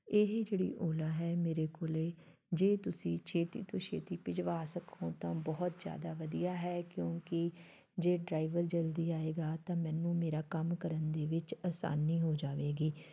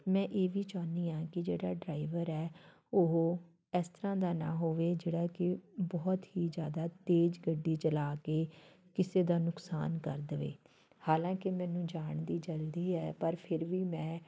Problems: background sounds at intervals, background conversations at intervals